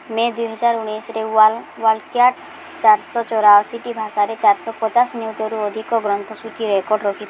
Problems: constant background noise